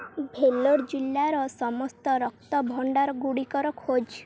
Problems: none marked